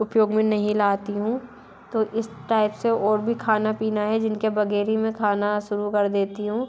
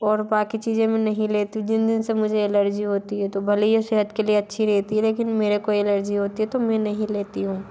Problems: none marked